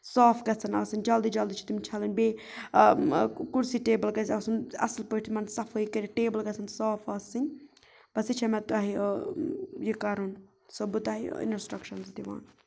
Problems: background sounds at intervals